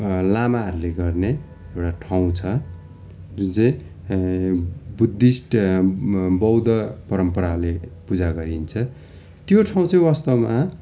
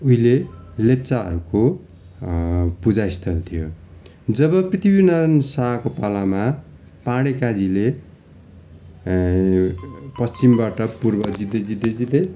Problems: constant background noise